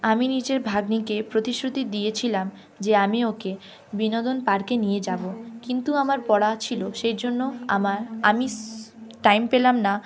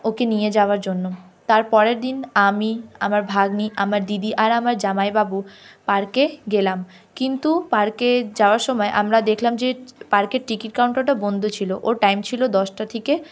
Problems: constant background noise